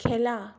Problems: none marked